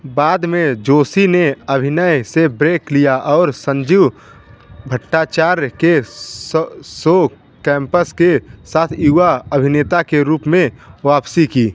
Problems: constant background noise